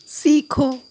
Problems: none marked